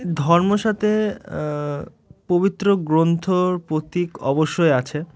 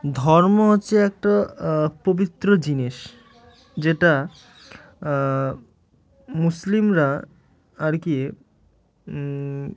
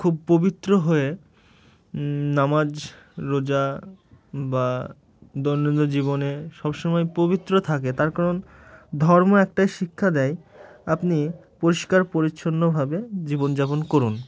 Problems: none marked